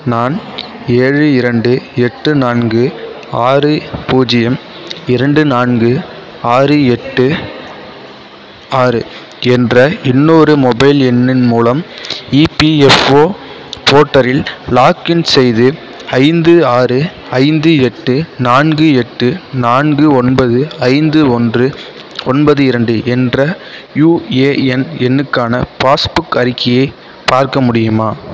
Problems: constant background noise, background conversations at intervals